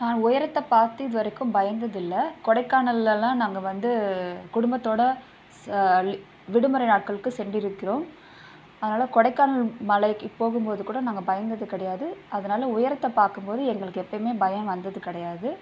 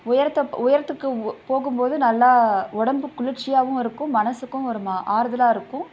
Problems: constant background noise